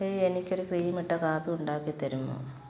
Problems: constant background noise